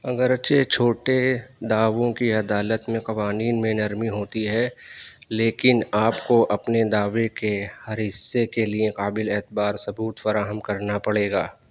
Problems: none marked